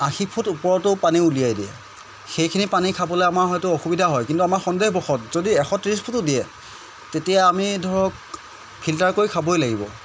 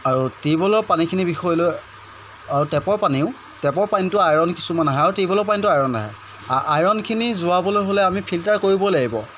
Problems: constant background noise